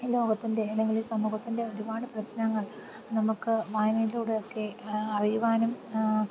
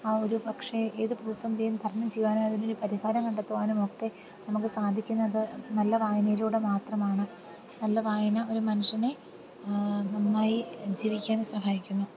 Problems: background sounds at intervals, low volume